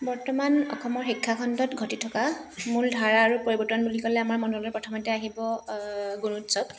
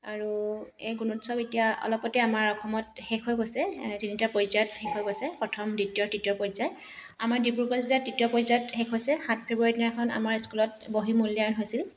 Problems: background sounds at intervals